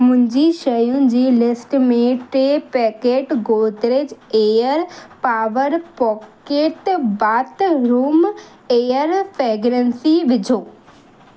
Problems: constant background noise